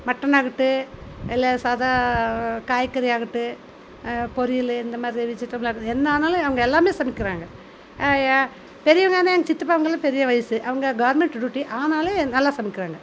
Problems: none marked